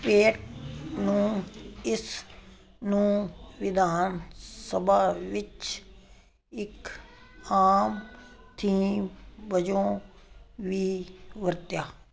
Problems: none marked